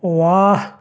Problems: none marked